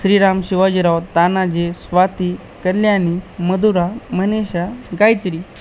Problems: constant background noise